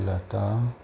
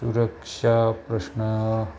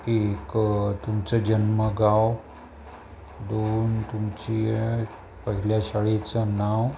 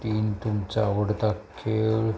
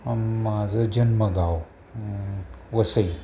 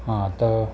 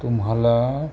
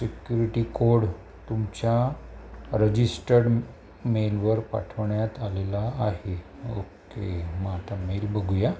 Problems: constant background noise